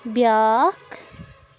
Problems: background sounds at intervals